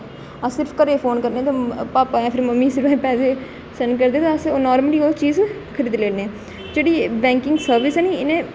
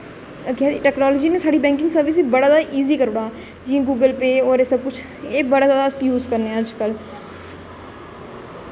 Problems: constant background noise